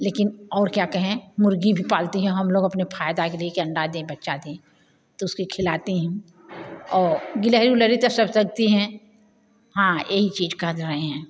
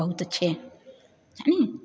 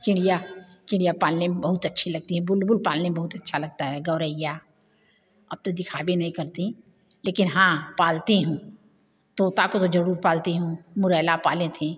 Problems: none marked